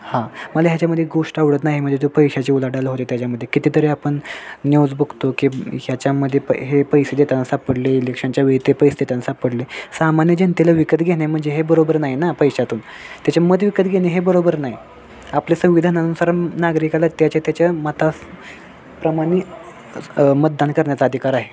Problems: constant background noise, background conversations at intervals